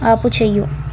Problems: none marked